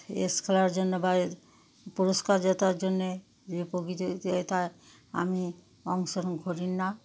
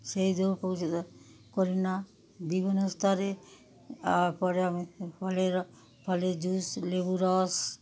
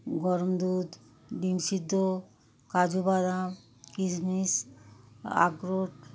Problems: background sounds at intervals